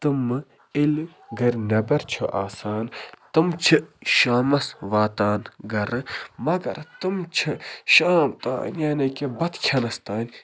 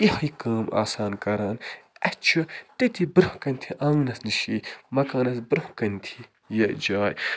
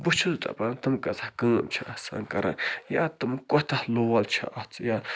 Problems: background sounds at intervals, background conversations at intervals